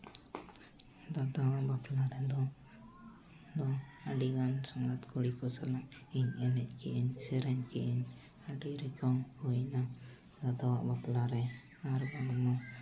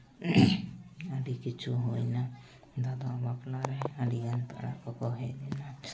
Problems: background conversations at intervals